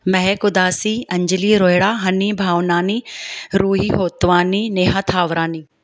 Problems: none marked